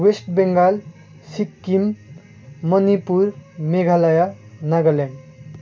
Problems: constant background noise